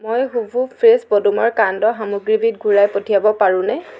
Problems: background sounds at intervals